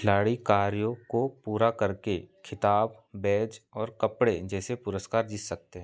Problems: background sounds at intervals